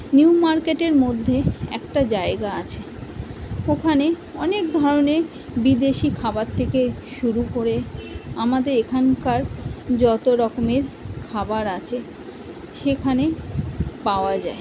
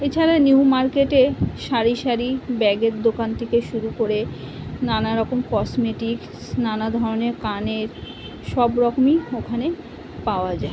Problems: constant background noise